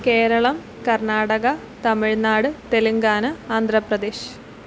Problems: none marked